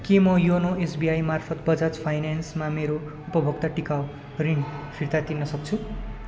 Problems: continuous background conversations